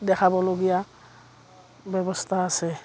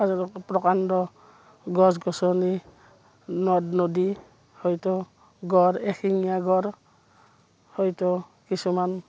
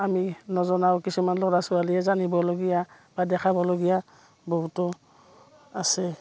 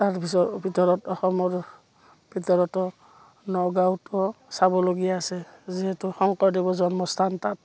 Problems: background sounds at intervals, background conversations at intervals